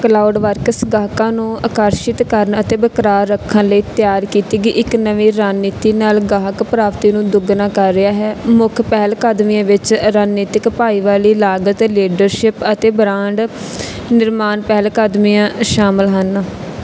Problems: background sounds at intervals